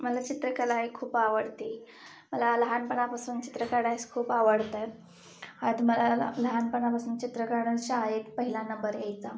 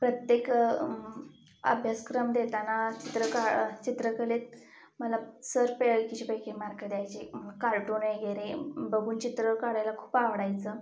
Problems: background sounds at intervals